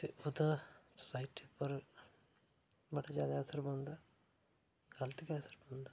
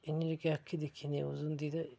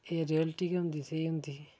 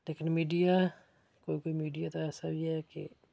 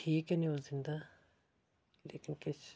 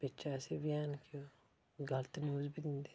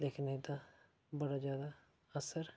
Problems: background sounds at intervals, low volume